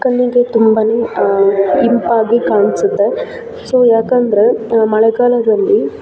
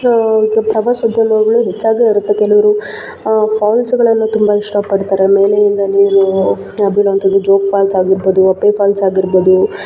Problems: background sounds at intervals